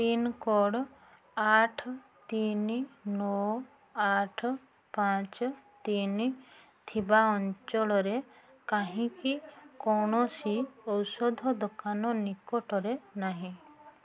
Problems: constant background noise